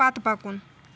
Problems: constant background noise